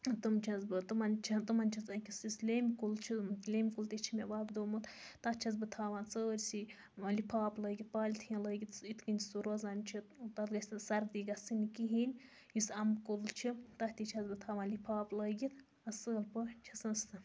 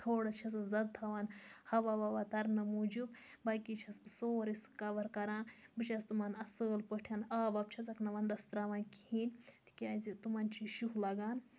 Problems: constant background noise